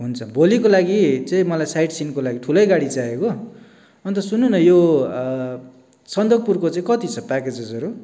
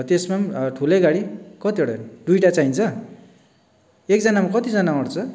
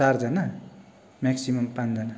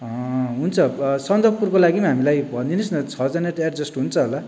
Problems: background sounds at intervals